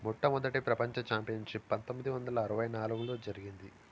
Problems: constant background noise